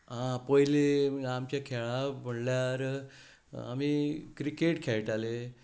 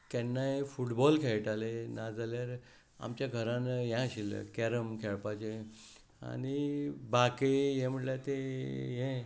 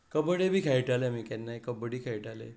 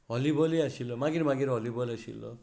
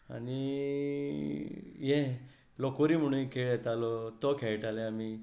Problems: none marked